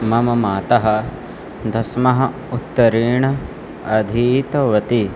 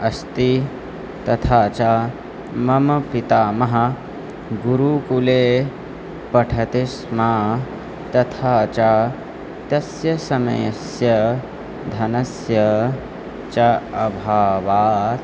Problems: constant background noise